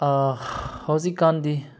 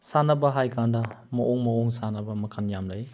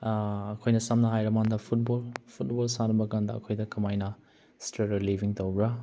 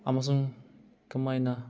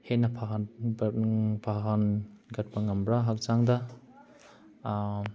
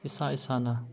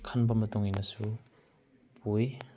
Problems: none marked